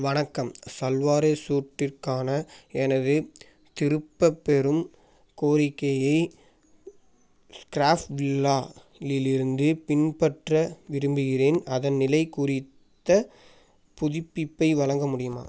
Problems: background sounds at intervals